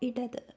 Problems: low volume